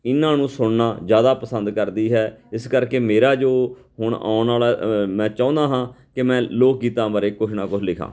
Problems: none marked